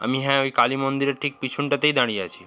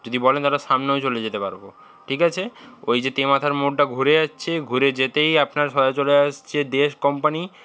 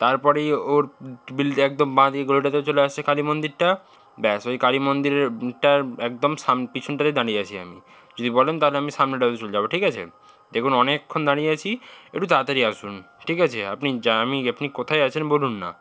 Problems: constant background noise